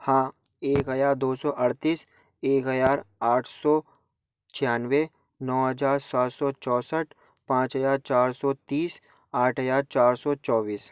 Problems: background sounds at intervals